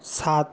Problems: constant background noise